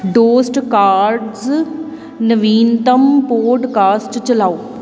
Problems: none marked